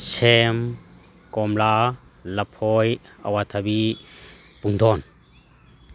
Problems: none marked